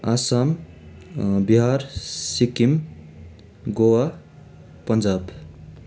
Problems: continuous background conversations